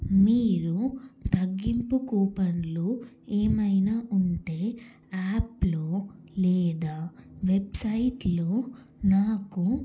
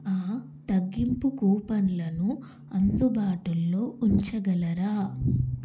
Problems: none marked